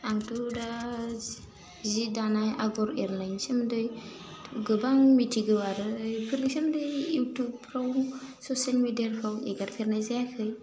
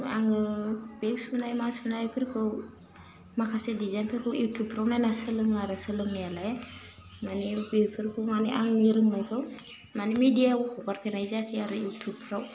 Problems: constant background noise